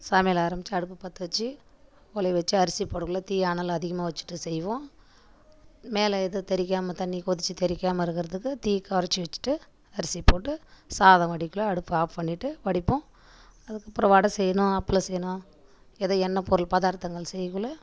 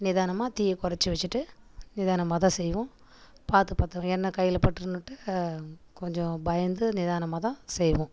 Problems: background sounds at intervals